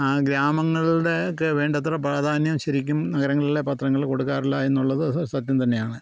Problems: none marked